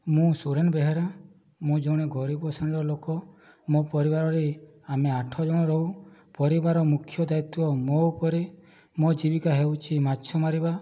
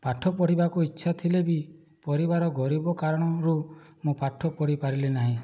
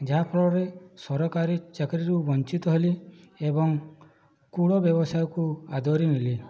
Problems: low volume